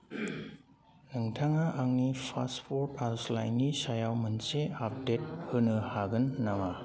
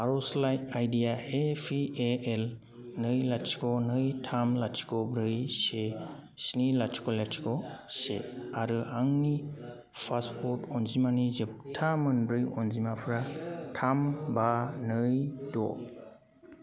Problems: constant background noise